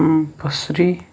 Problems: none marked